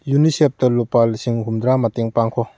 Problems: none marked